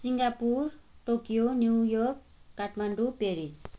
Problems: background sounds at intervals